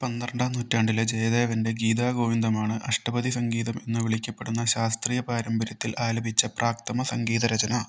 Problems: none marked